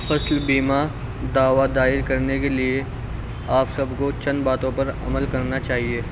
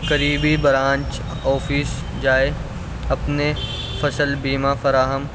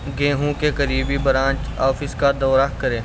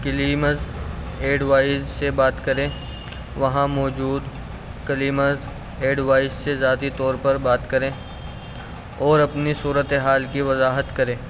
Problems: constant background noise, background conversations at intervals